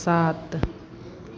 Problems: constant background noise, continuous background conversations